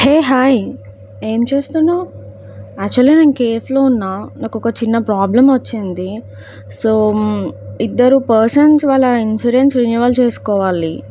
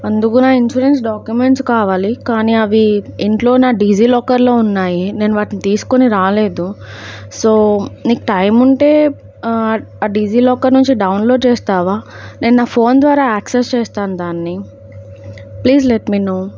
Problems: none marked